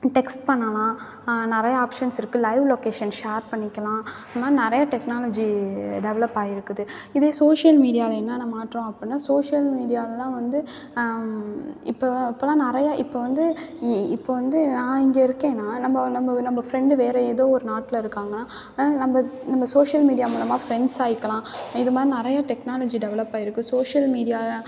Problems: none marked